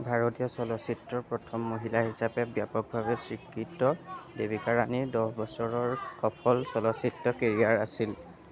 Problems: background conversations at intervals